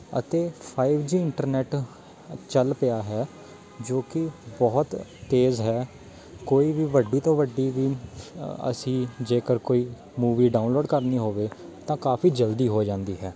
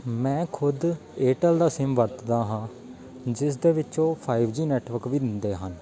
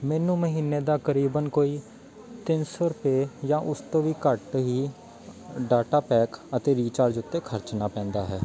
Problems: background sounds at intervals, background conversations at intervals